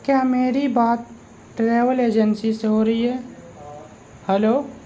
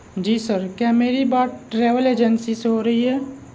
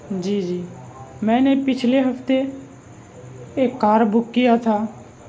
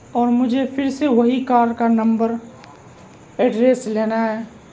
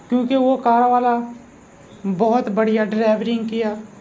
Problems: constant background noise